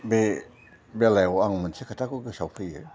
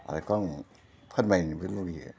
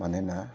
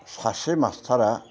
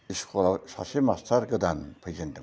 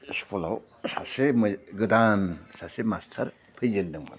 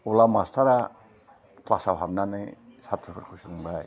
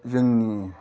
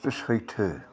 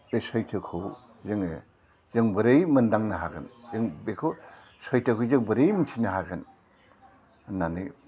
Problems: low volume